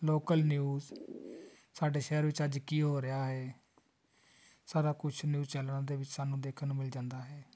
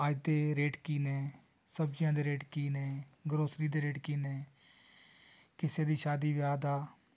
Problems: none marked